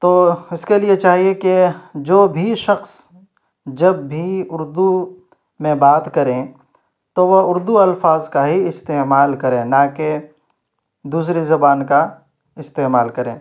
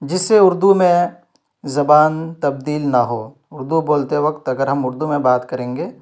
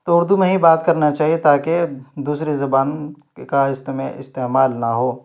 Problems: none marked